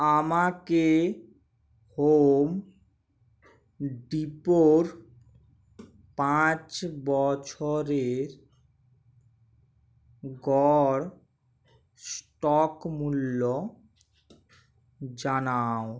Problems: none marked